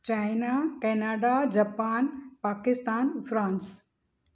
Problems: none marked